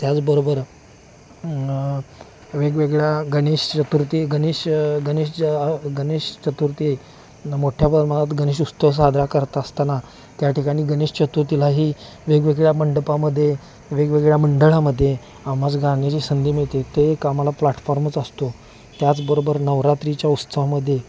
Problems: constant background noise